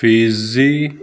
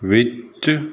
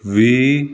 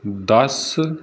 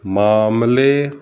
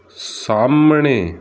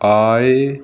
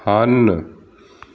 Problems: background sounds at intervals